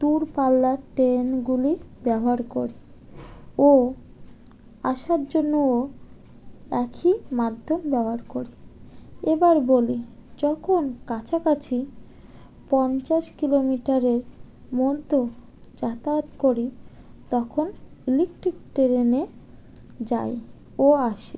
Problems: constant background noise